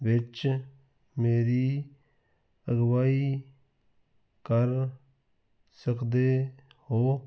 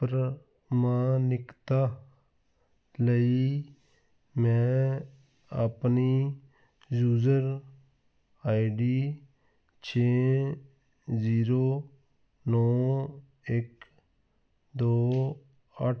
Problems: none marked